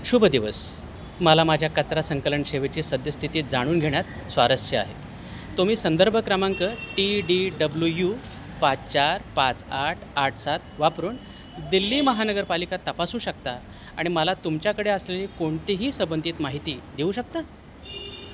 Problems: constant background noise